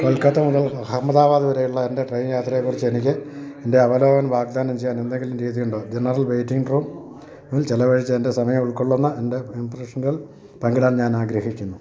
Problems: background conversations at intervals